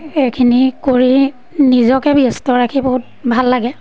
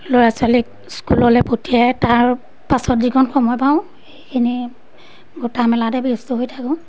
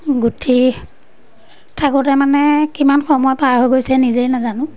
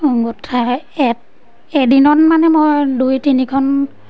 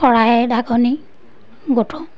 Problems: background sounds at intervals